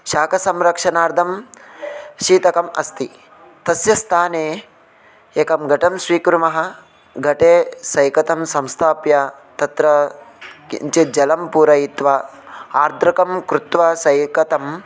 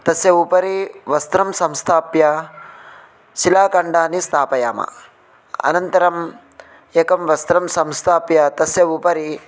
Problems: constant background noise, continuous background conversations